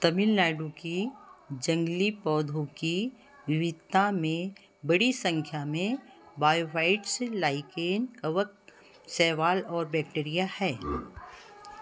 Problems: continuous background conversations